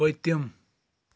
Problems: none marked